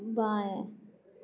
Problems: low volume